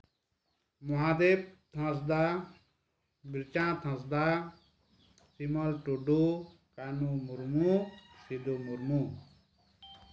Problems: background sounds at intervals